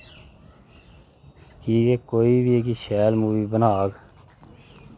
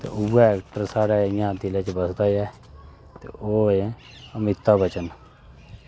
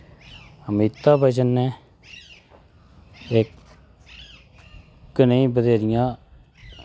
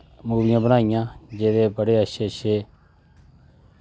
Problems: constant background noise